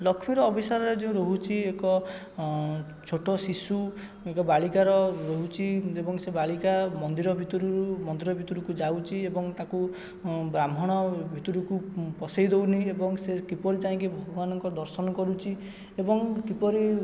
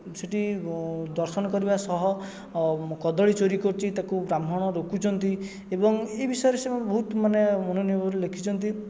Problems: background sounds at intervals, background conversations at intervals